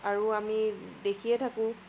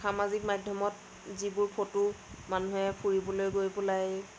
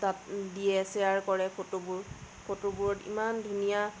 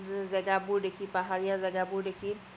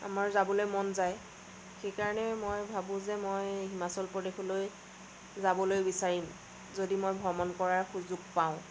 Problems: constant background noise